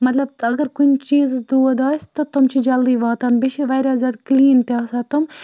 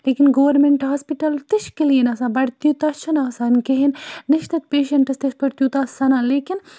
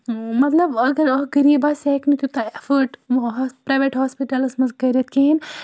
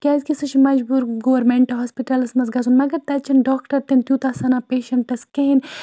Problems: none marked